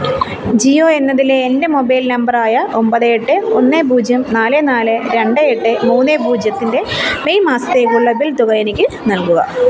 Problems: continuous background conversations